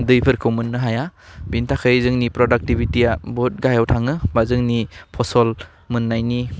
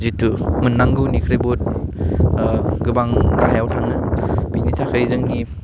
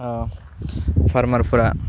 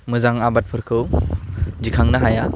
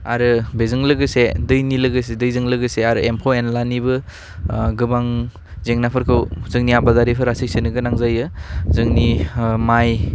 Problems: none marked